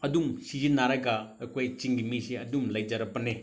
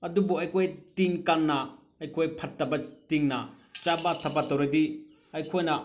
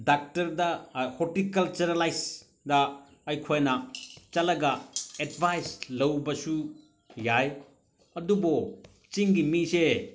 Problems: none marked